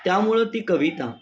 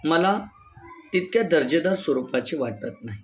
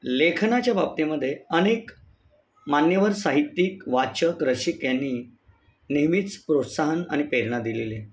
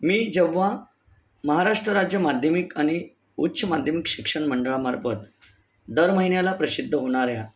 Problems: background sounds at intervals